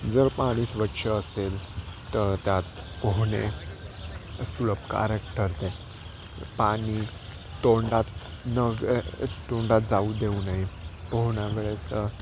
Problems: constant background noise